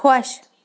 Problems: continuous background conversations